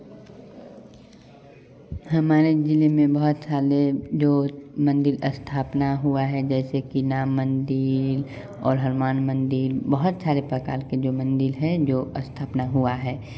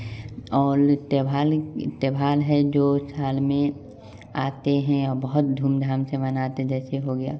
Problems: constant background noise, continuous background conversations